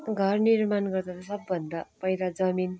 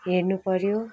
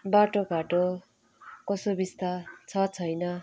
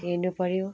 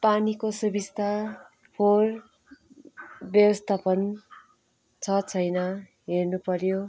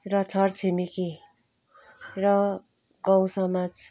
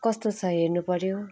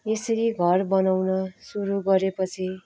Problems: continuous background conversations